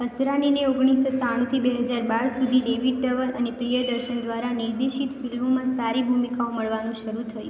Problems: constant background noise